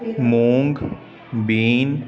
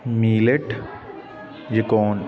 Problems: continuous background conversations